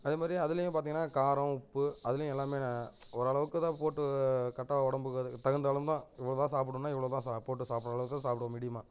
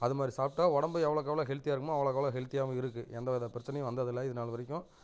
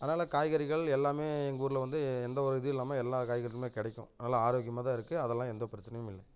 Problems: constant background noise, low volume